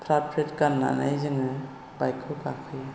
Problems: none marked